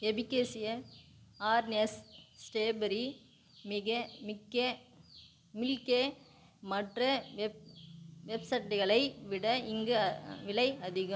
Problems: background sounds at intervals